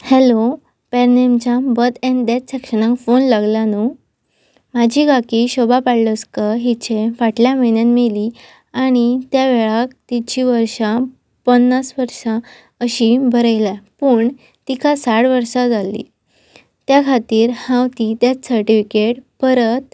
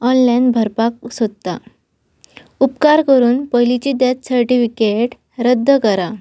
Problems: constant background noise